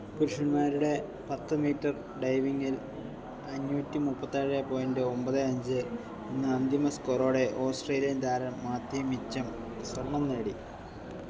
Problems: background sounds at intervals